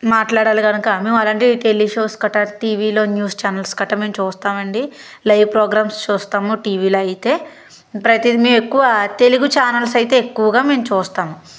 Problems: constant background noise